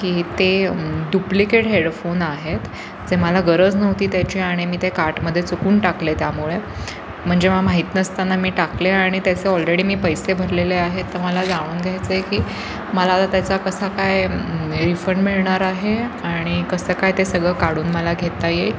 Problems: constant background noise, continuous background conversations